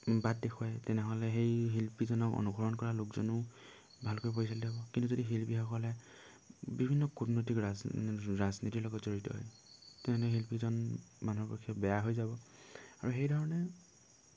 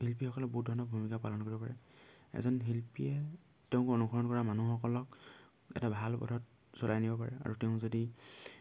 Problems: low volume